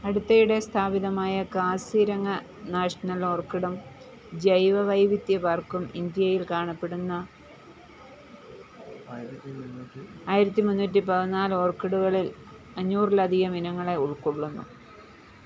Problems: background sounds at intervals